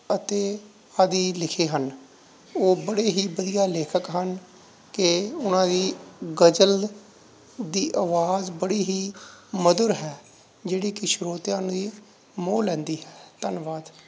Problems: none marked